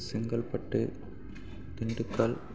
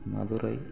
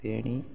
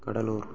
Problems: constant background noise